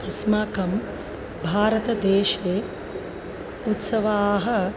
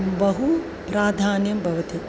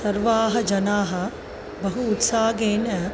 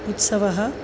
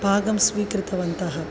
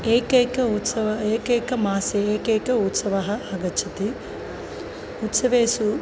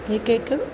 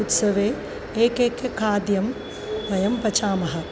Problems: constant background noise